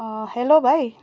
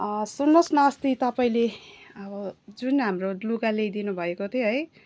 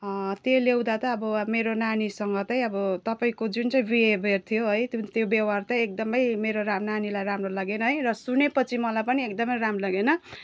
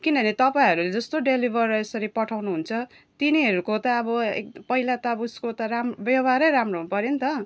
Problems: none marked